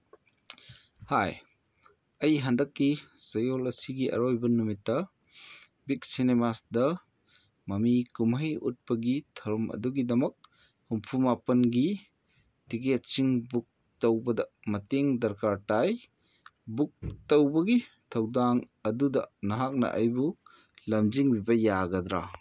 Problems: none marked